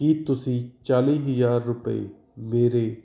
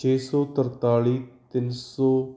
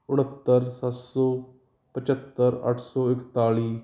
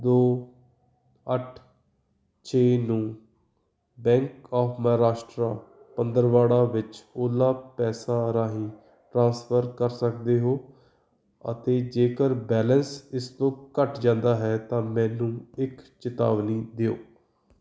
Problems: background sounds at intervals